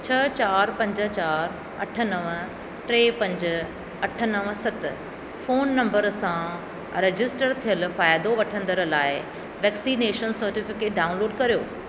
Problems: none marked